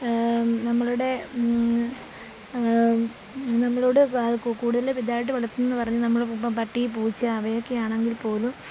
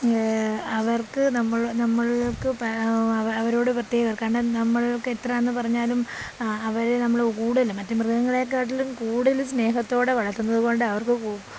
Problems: constant background noise